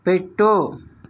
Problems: none marked